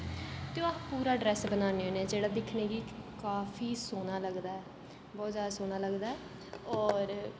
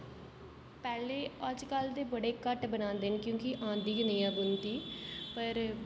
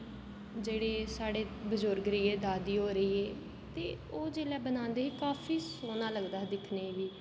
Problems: constant background noise, low volume